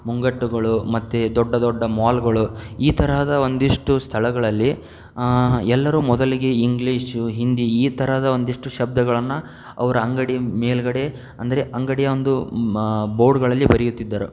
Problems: none marked